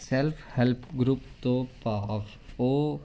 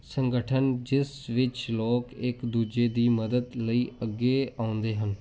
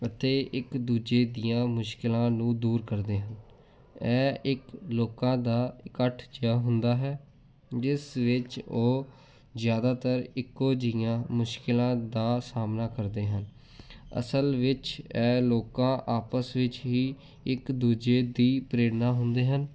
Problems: background sounds at intervals